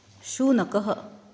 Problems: constant background noise